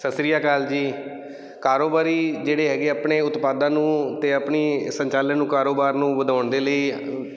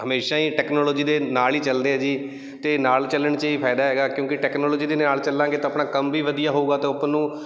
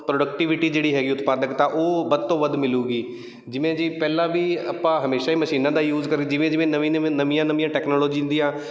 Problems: none marked